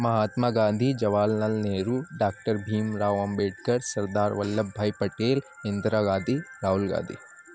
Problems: constant background noise